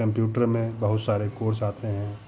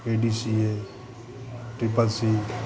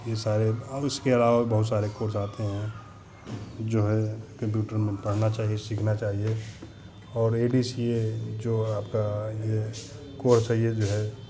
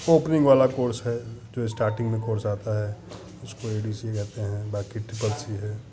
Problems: none marked